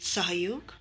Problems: none marked